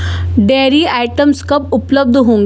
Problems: constant background noise